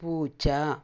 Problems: low volume